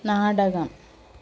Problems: constant background noise